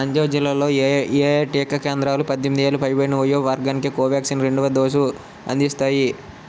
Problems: constant background noise